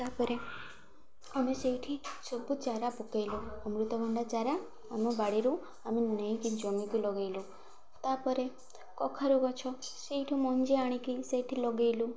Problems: constant background noise, continuous background conversations